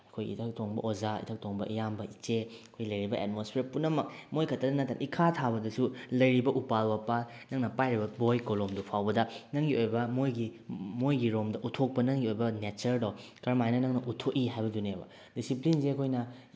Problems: none marked